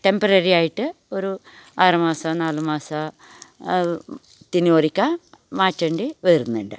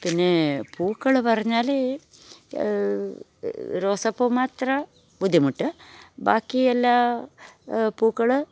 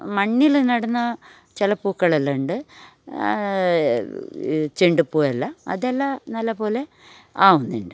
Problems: none marked